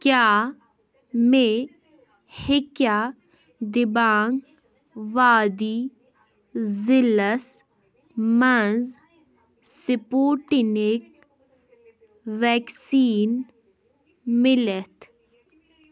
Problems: background sounds at intervals